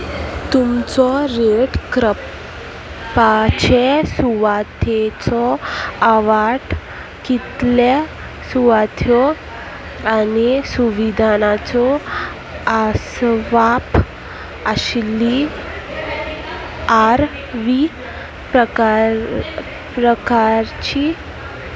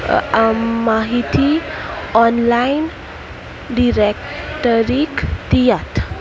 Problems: constant background noise, continuous background conversations